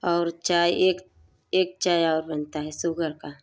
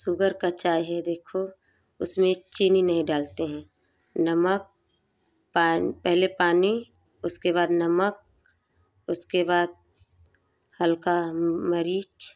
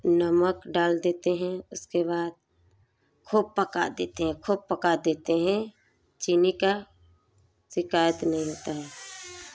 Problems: background sounds at intervals